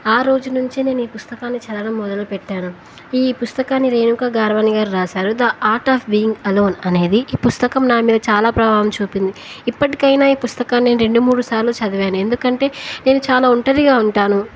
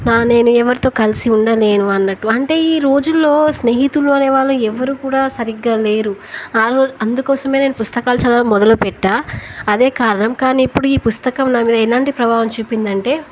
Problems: none marked